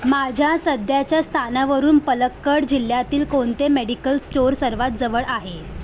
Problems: none marked